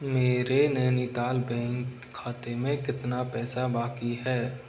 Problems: constant background noise